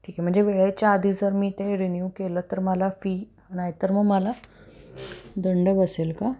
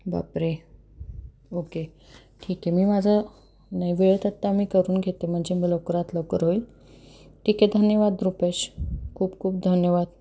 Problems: constant background noise